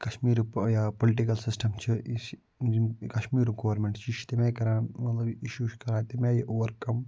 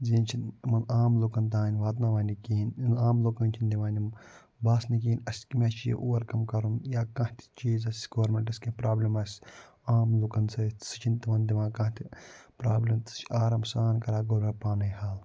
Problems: low volume